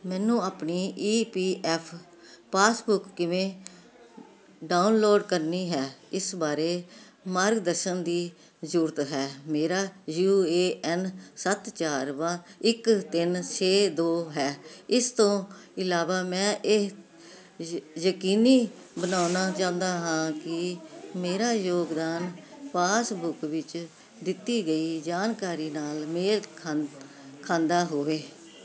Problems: none marked